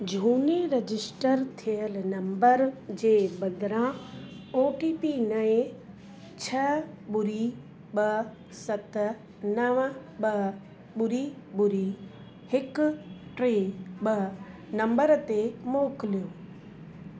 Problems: constant background noise